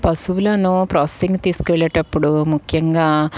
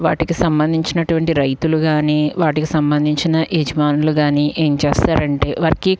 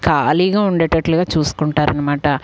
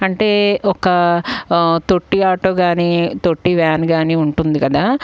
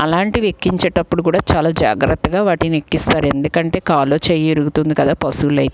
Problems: background sounds at intervals